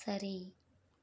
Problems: none marked